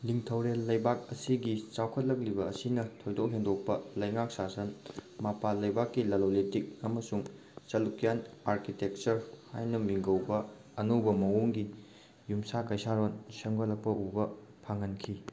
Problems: none marked